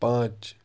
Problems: constant background noise, low volume